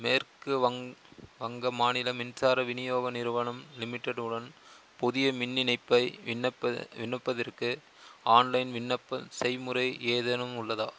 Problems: constant background noise